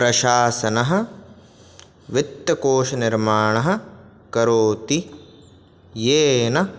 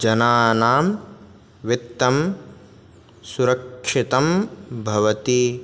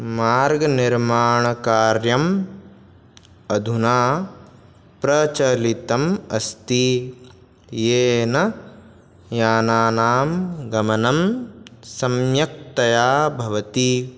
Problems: none marked